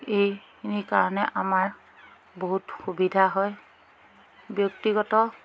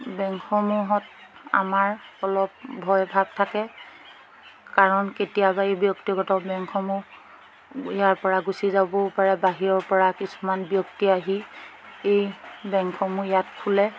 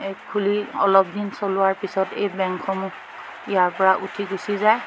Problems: constant background noise, background conversations at intervals